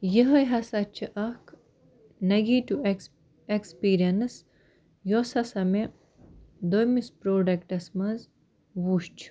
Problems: background sounds at intervals